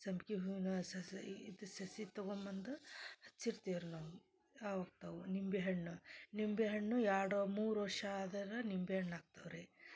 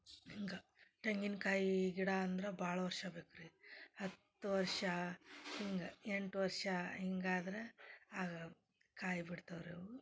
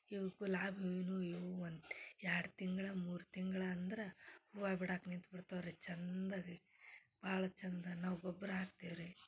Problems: none marked